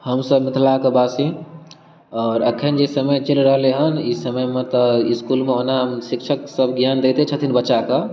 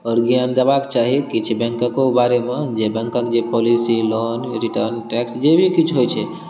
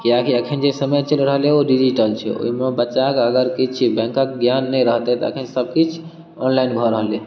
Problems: none marked